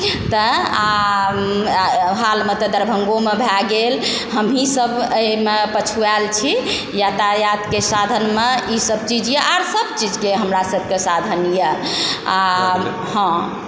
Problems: constant background noise, background conversations at intervals